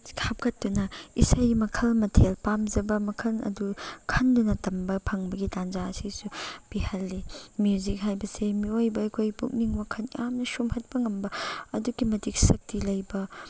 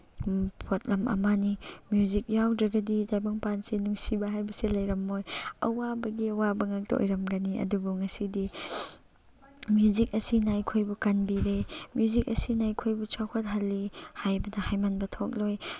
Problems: constant background noise